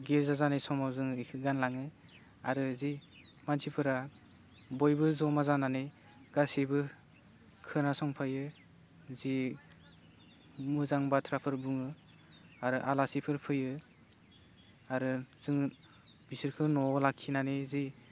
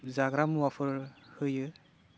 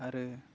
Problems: none marked